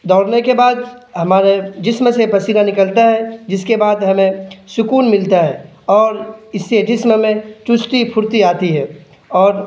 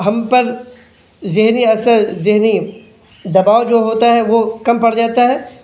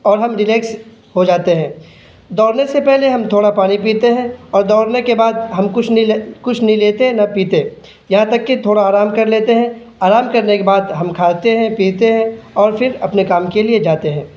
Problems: none marked